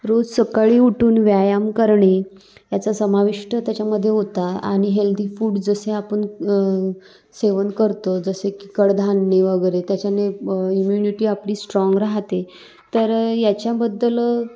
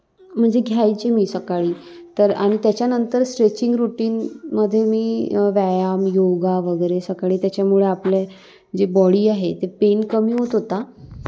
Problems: constant background noise